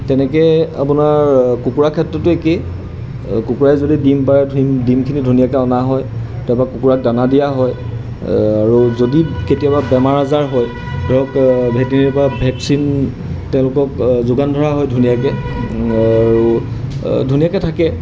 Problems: background sounds at intervals